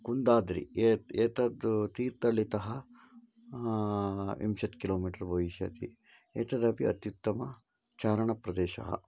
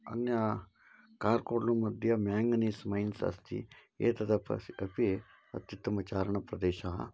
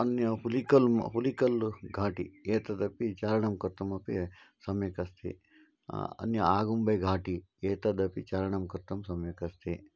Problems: low volume